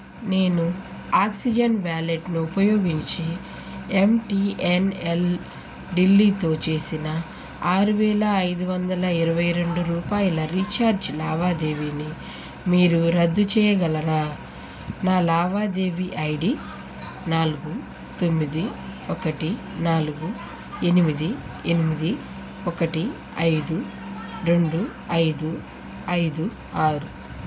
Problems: constant background noise